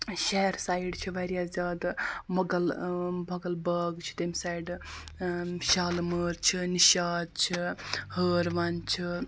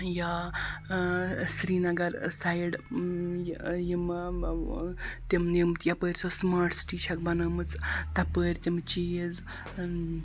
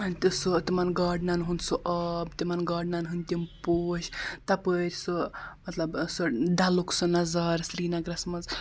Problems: constant background noise